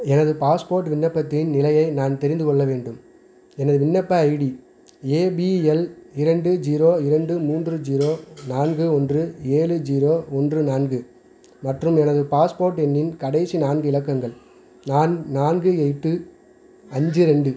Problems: background sounds at intervals, background conversations at intervals